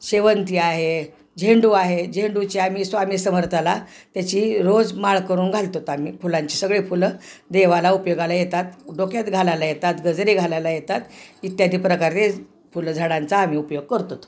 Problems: none marked